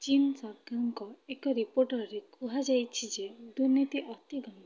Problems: low volume